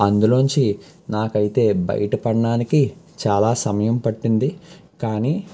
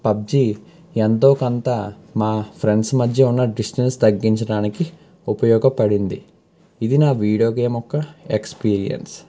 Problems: constant background noise